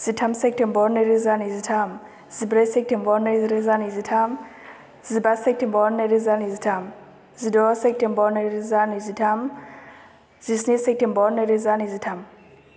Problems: none marked